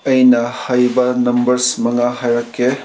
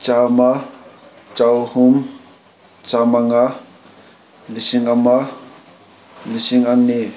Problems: none marked